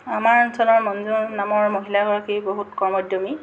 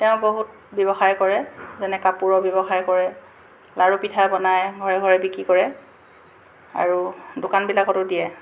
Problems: constant background noise